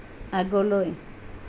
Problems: none marked